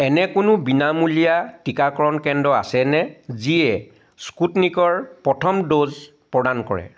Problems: none marked